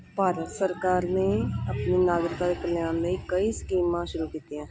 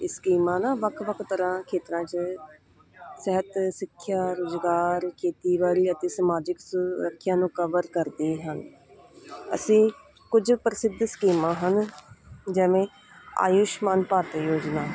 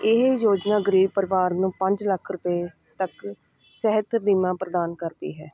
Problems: none marked